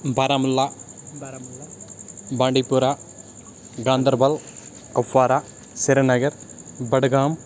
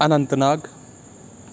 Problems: background conversations at intervals